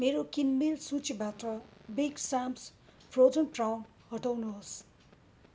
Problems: none marked